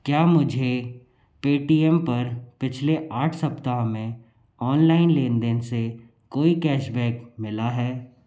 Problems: low volume